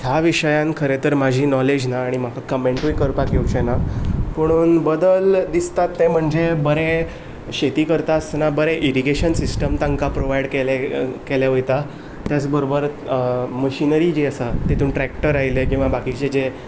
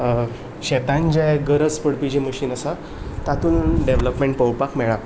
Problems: none marked